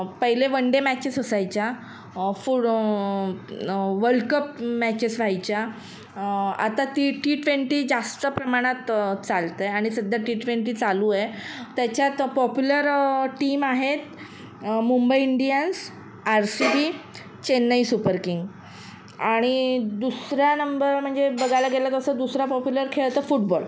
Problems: none marked